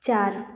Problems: none marked